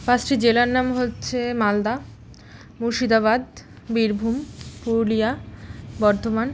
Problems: none marked